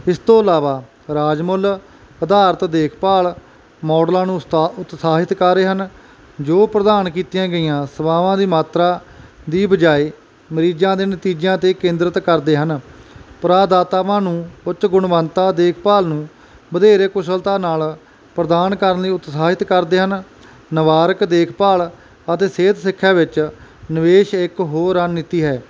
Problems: background sounds at intervals